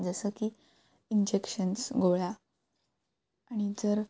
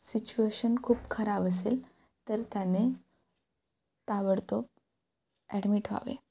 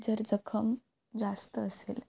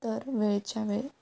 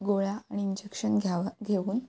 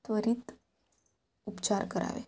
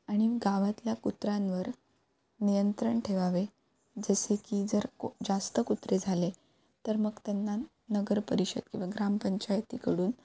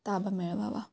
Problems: background sounds at intervals